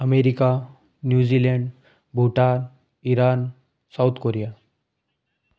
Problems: background sounds at intervals